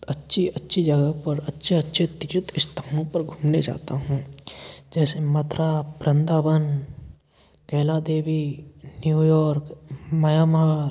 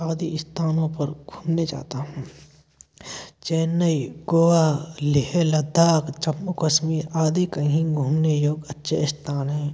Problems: background sounds at intervals